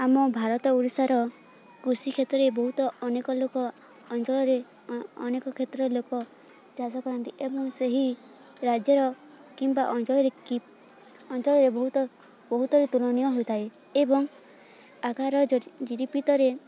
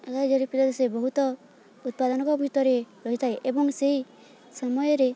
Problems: constant background noise